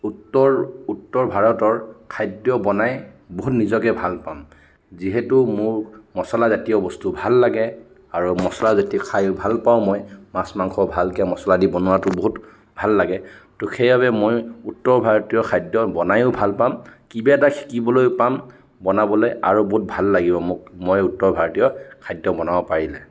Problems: none marked